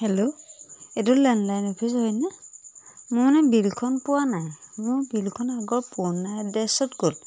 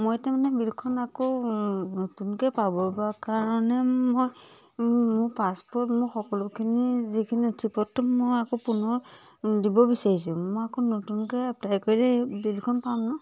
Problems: none marked